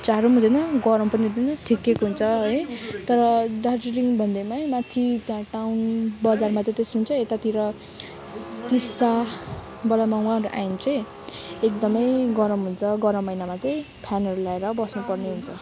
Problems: none marked